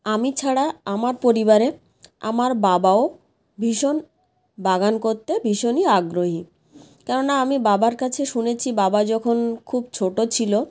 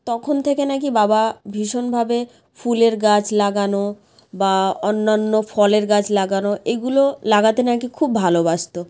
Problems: none marked